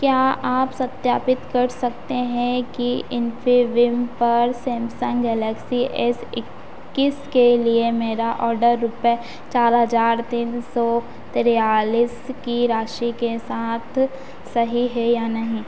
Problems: none marked